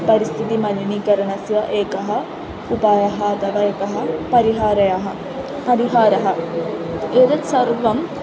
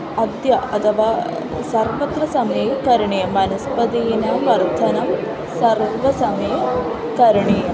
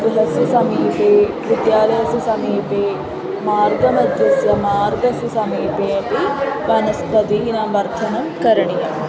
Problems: constant background noise, continuous background conversations